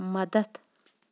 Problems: none marked